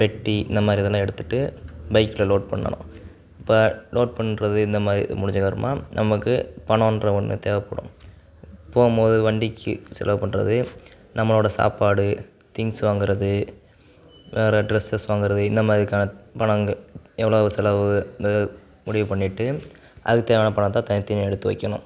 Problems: none marked